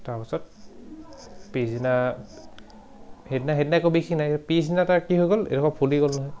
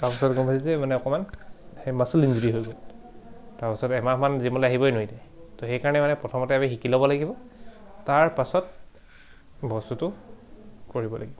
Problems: background sounds at intervals